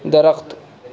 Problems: constant background noise